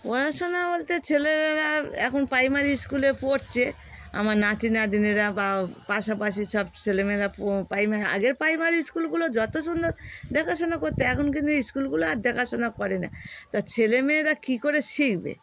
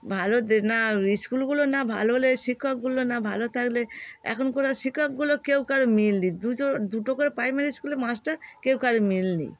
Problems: constant background noise